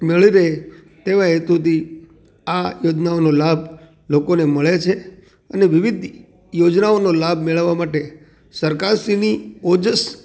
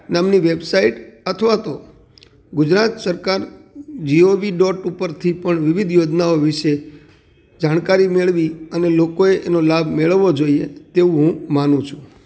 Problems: background sounds at intervals